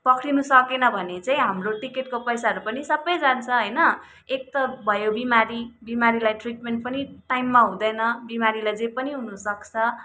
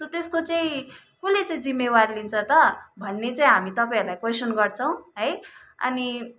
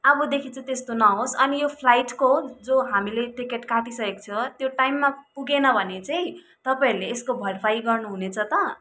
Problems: background sounds at intervals